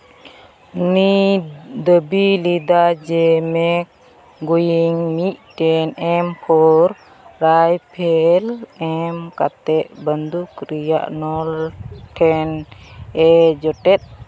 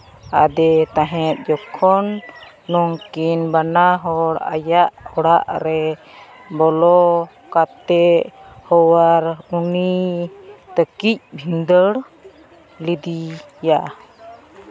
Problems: constant background noise, background conversations at intervals